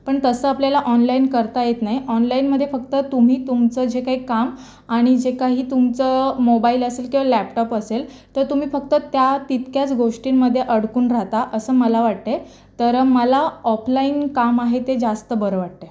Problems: constant background noise